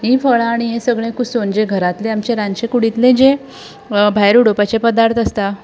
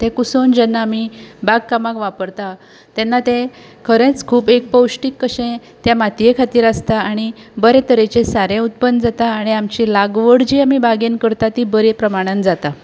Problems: background sounds at intervals